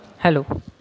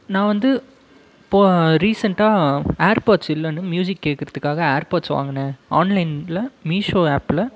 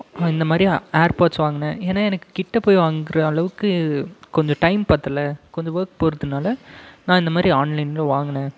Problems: background sounds at intervals